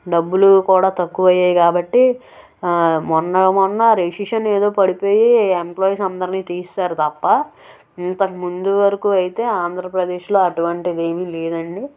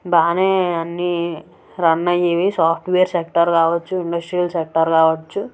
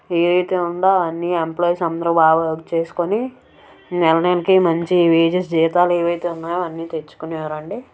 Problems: background sounds at intervals